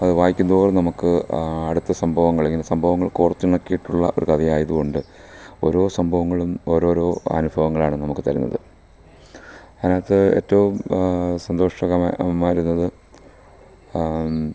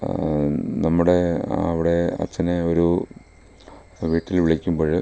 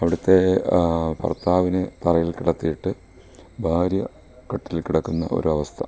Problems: low volume